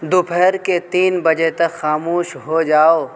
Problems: constant background noise